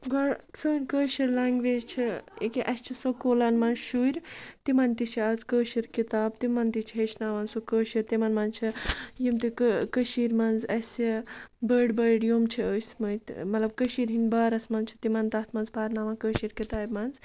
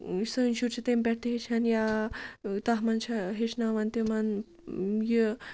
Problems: none marked